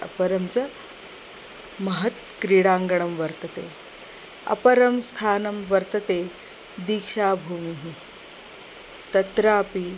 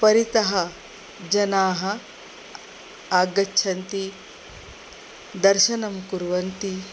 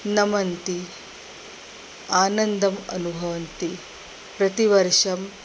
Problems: none marked